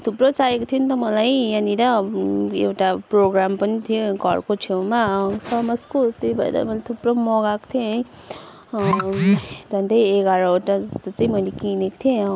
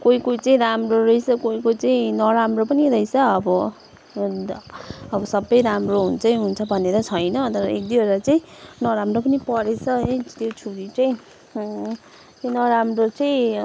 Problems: constant background noise